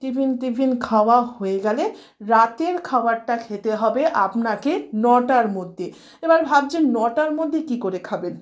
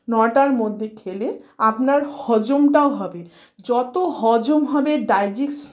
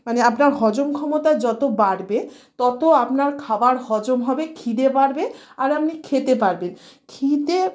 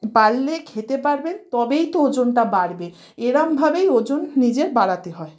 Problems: none marked